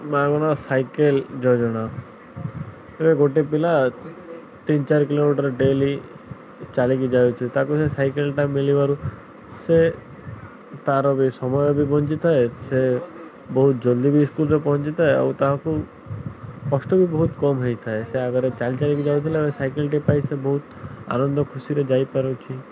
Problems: none marked